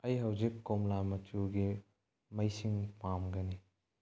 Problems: low volume